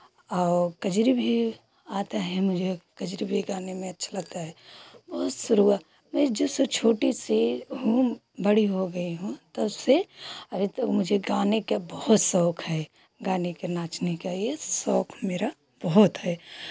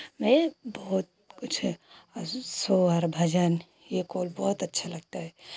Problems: constant background noise